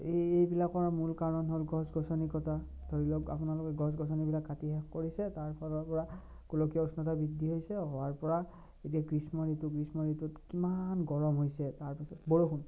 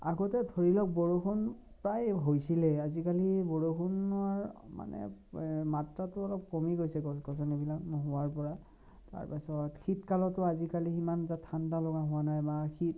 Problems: low volume